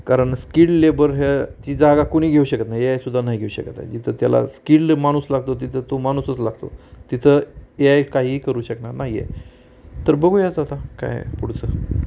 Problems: none marked